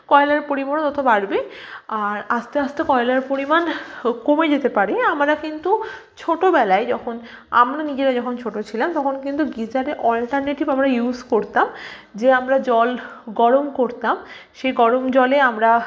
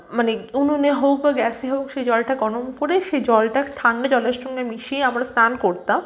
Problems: background sounds at intervals